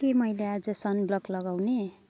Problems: none marked